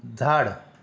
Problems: none marked